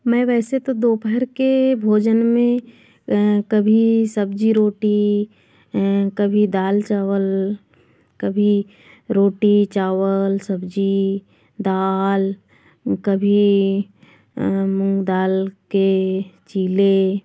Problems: background sounds at intervals